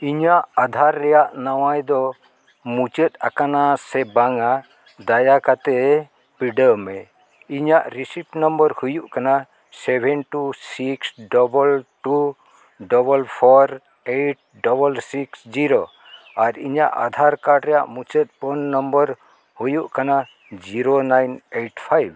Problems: none marked